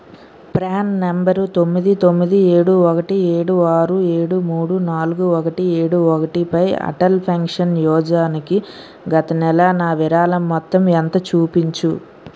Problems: constant background noise